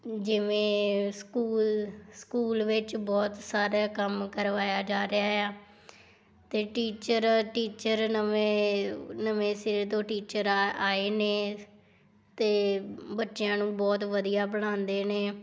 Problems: background sounds at intervals